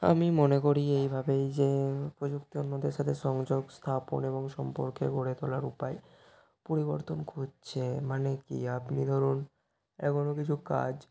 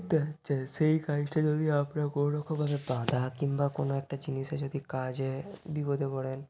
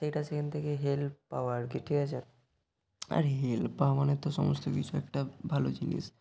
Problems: constant background noise